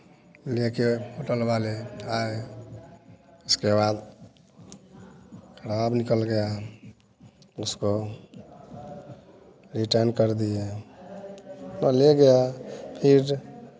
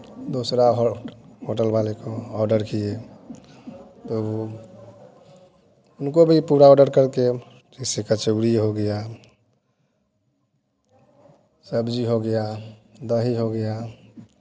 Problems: background sounds at intervals